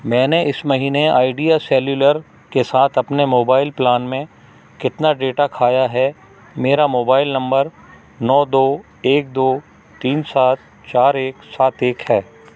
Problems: none marked